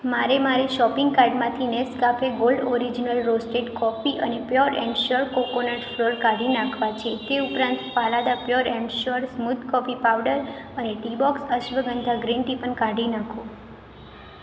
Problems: constant background noise